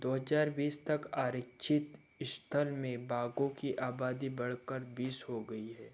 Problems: none marked